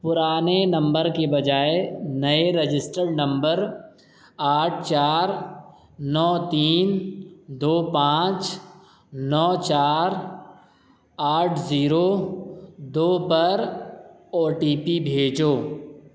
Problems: none marked